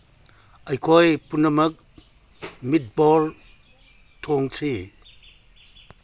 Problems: none marked